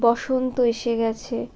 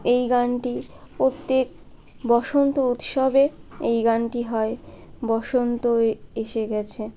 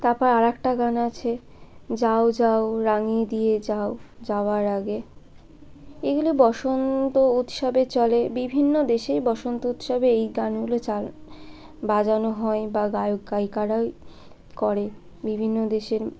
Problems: constant background noise, continuous background conversations